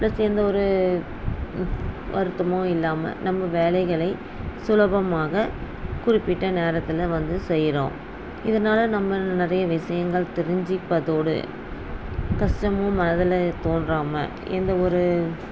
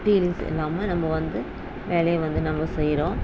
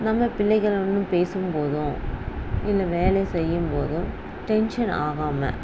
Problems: none marked